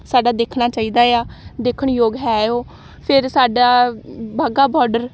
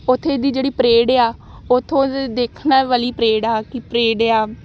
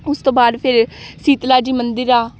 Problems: none marked